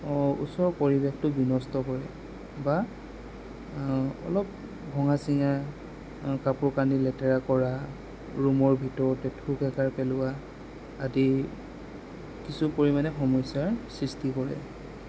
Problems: none marked